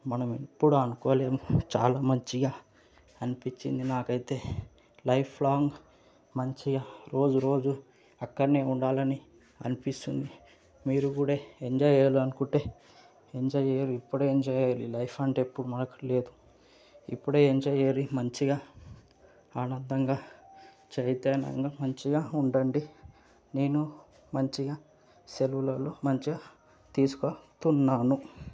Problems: background sounds at intervals